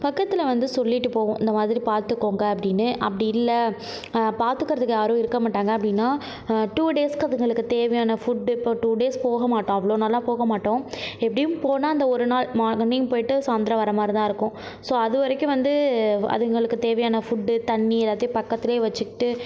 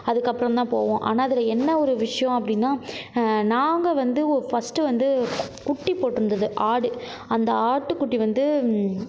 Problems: none marked